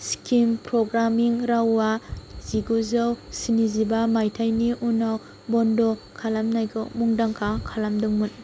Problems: none marked